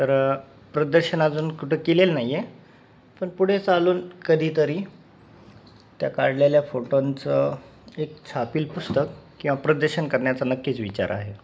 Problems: constant background noise